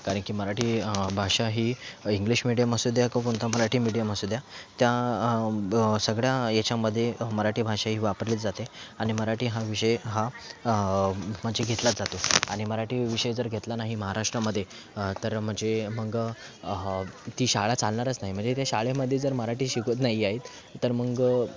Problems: background sounds at intervals